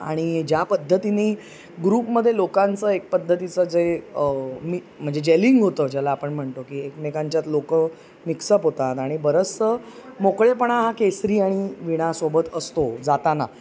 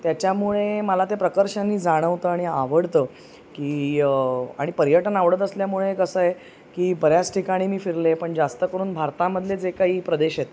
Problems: none marked